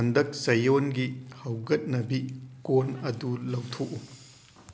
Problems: constant background noise